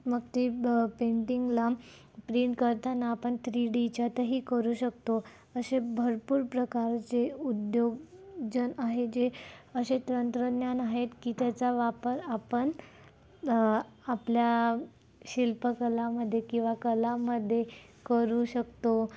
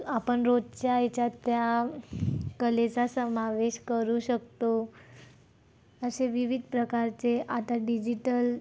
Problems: constant background noise, background conversations at intervals